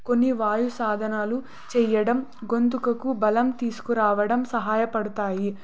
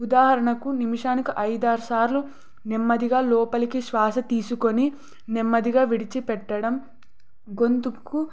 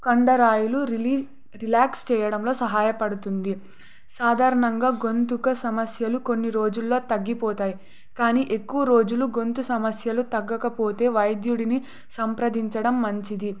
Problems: none marked